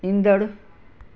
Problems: constant background noise